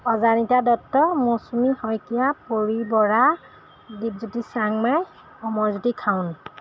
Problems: none marked